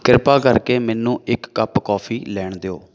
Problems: background sounds at intervals